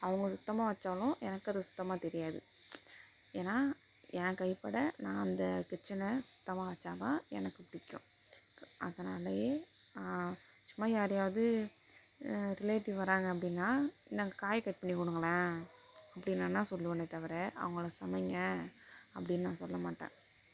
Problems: constant background noise, low volume